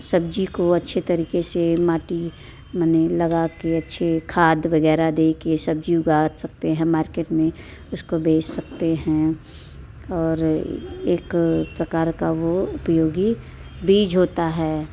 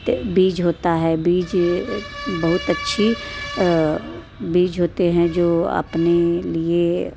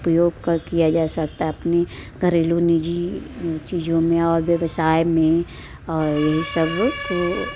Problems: constant background noise